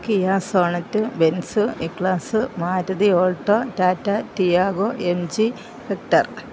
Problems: low volume